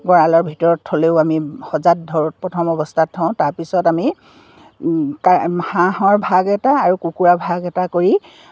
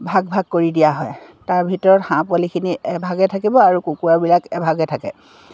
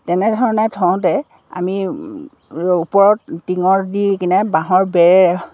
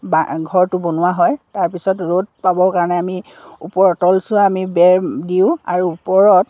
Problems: none marked